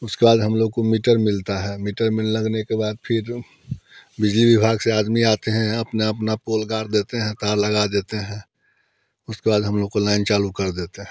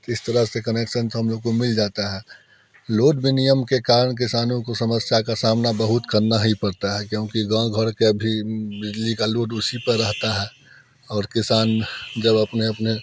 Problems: constant background noise, continuous background conversations